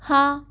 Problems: constant background noise